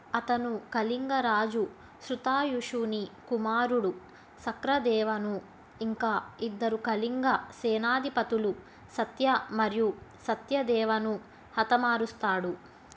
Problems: constant background noise